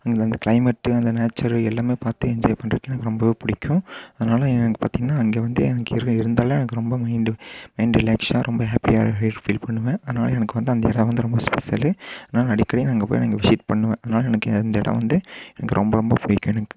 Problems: constant background noise